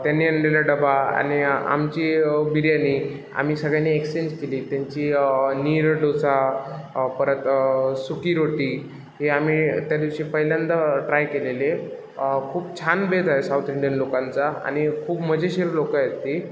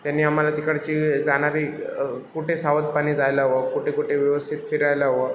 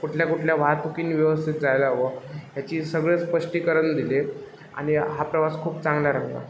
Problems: background sounds at intervals